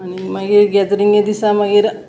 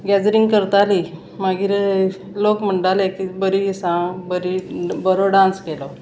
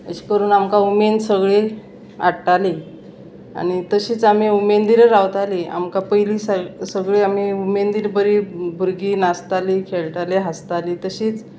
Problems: none marked